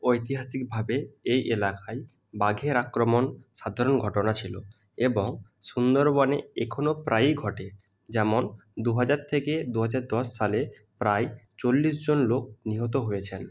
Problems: none marked